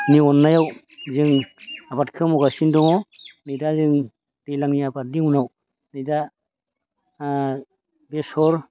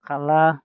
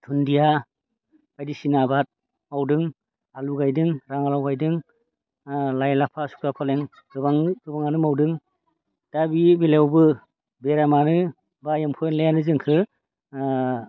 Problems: constant background noise